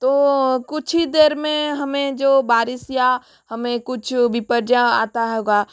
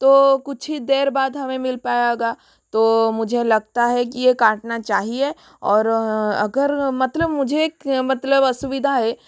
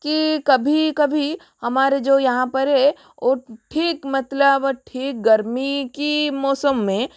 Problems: constant background noise